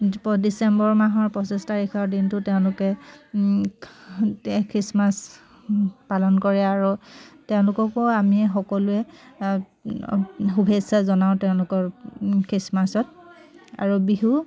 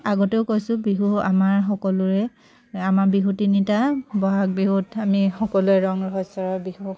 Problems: constant background noise, background conversations at intervals